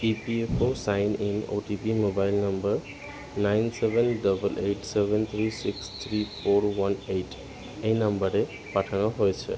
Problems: constant background noise